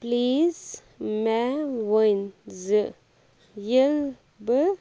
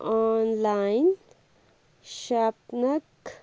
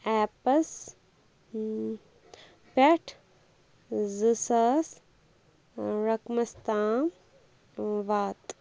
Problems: background conversations at intervals